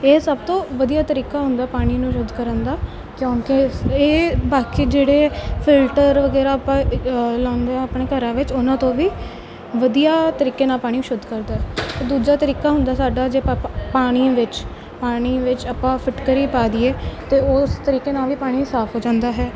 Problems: none marked